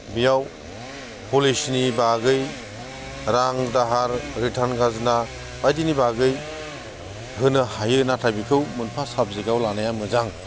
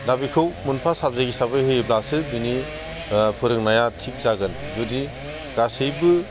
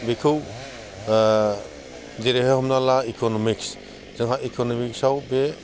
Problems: constant background noise